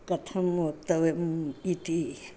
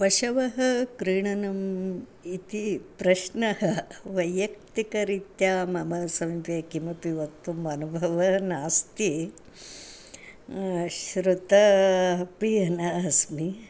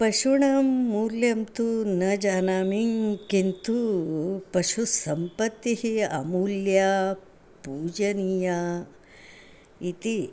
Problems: none marked